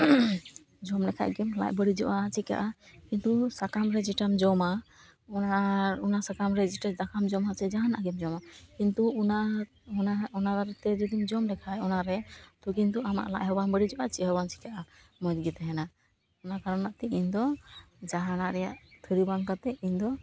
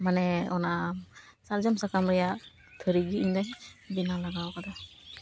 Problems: background sounds at intervals